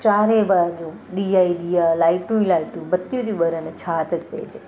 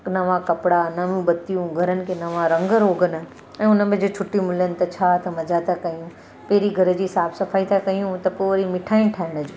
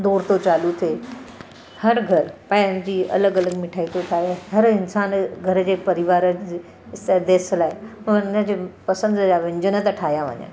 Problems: constant background noise